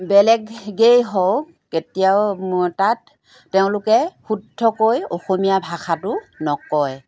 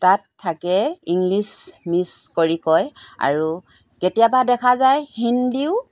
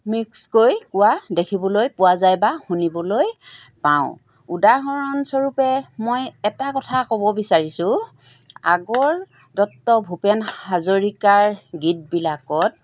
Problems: background sounds at intervals